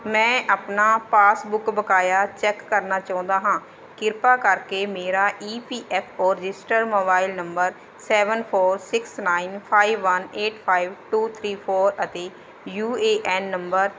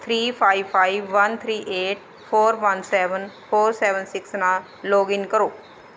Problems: constant background noise